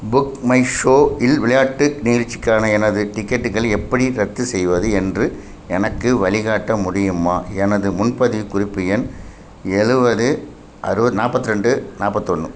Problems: constant background noise